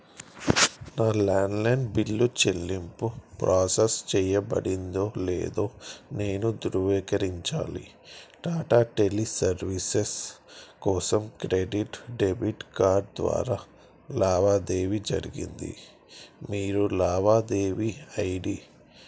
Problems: constant background noise